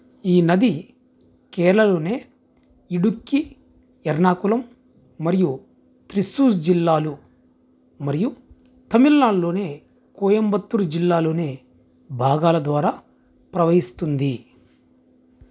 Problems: none marked